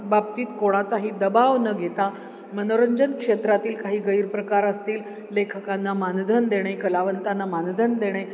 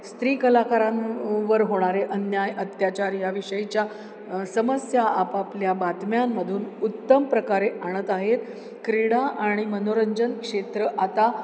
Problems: constant background noise, background conversations at intervals